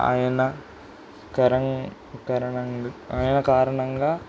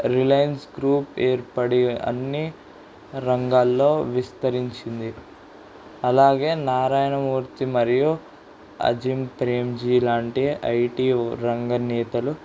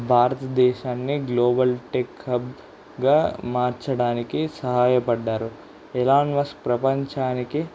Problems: constant background noise